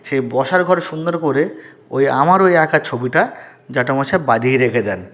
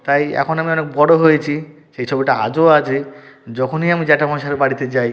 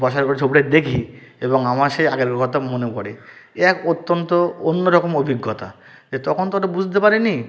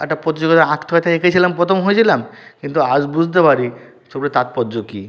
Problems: background sounds at intervals